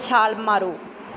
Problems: background sounds at intervals